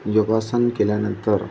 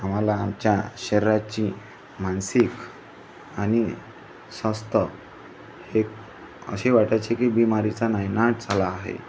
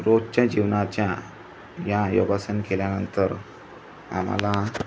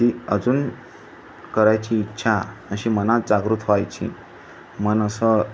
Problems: constant background noise, background conversations at intervals